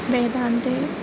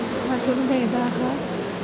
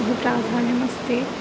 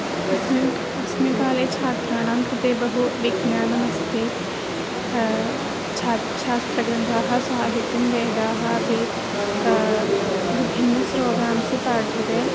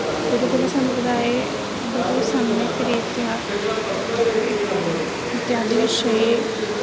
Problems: constant background noise